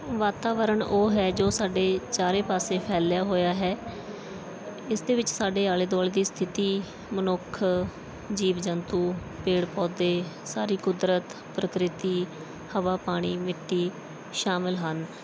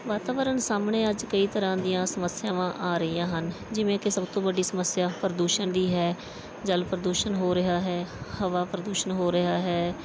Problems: background sounds at intervals, background conversations at intervals